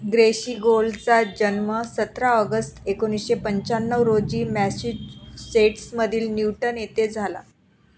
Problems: constant background noise, background conversations at intervals